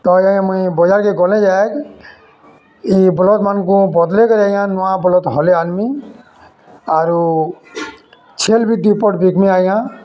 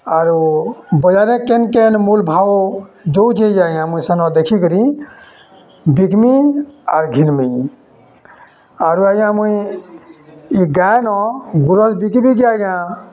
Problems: constant background noise, continuous background conversations